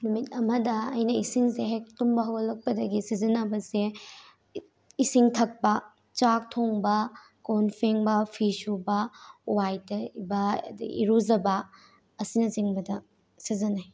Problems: none marked